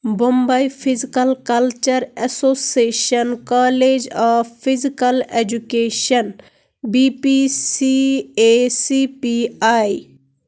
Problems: background sounds at intervals